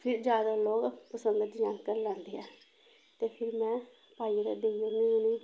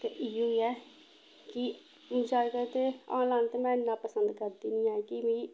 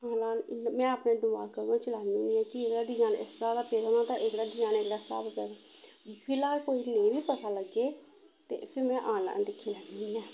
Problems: constant background noise, low volume